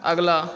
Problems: constant background noise, continuous background conversations